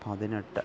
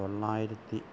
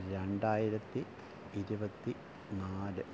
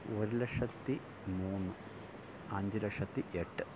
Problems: low volume